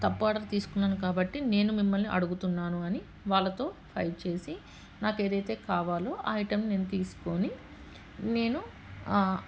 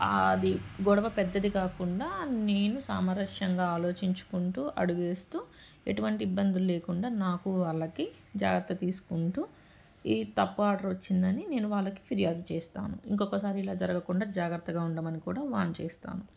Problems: background sounds at intervals